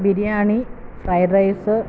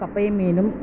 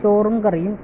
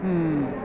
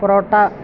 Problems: none marked